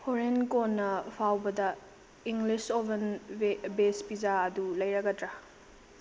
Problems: constant background noise, low volume